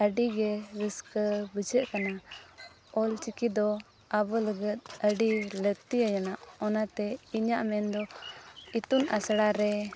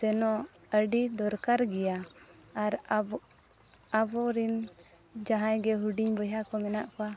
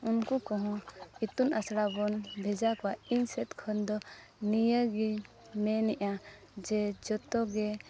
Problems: constant background noise, background conversations at intervals